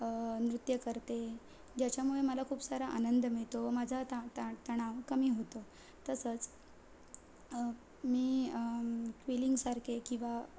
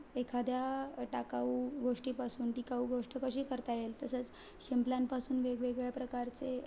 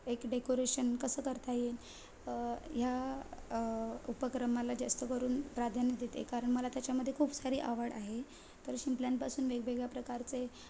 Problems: constant background noise